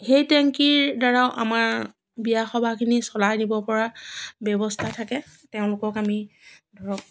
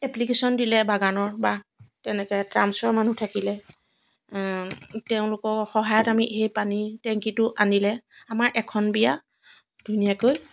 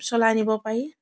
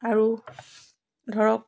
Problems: none marked